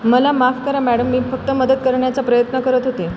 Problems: background sounds at intervals